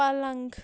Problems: none marked